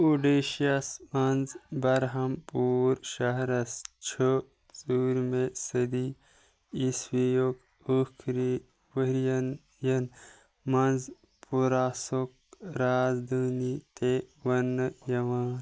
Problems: background sounds at intervals